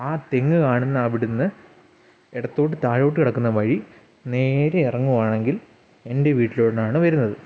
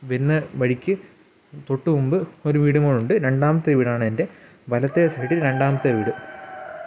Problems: background sounds at intervals